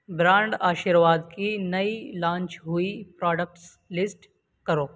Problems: constant background noise